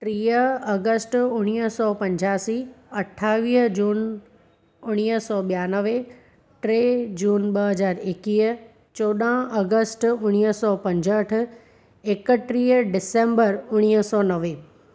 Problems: constant background noise